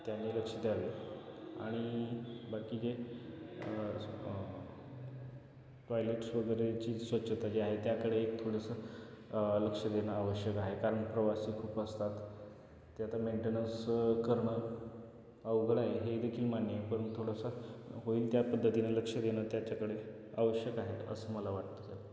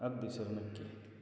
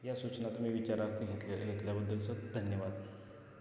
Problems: none marked